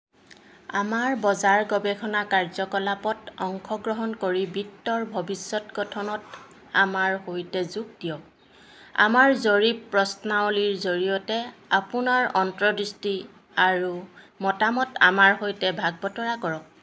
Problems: constant background noise